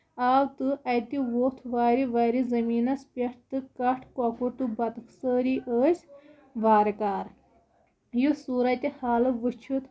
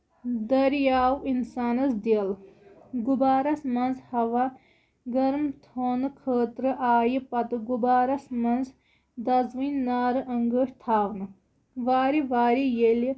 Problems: background sounds at intervals